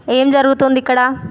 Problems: constant background noise